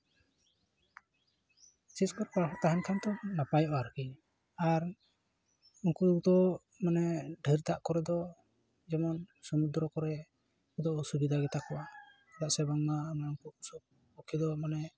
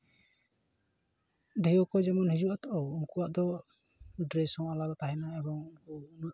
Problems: none marked